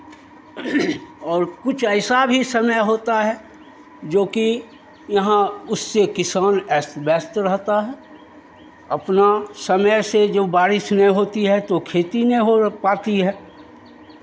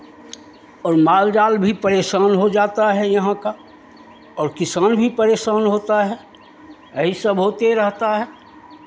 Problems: constant background noise, background conversations at intervals